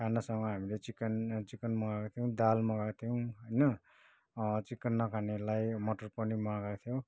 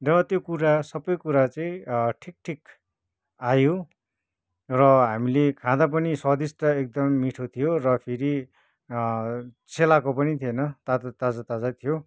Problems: none marked